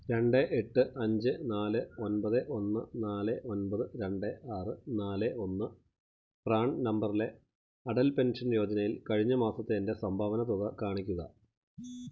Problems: background sounds at intervals